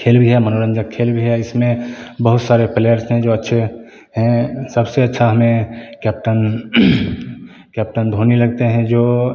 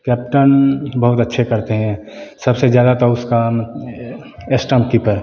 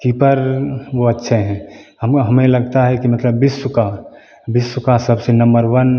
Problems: constant background noise